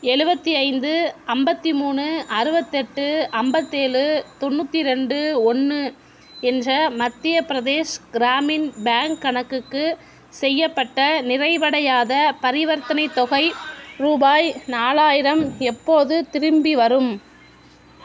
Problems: constant background noise